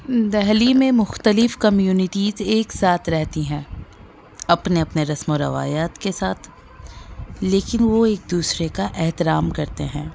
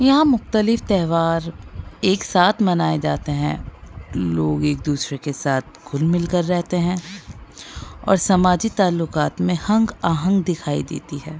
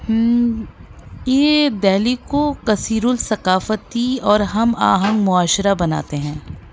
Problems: background sounds at intervals